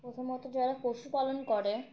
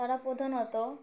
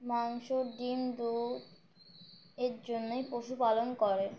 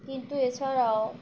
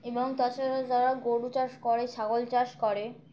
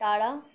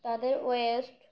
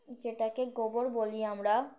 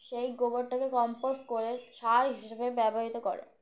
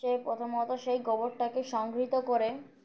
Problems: none marked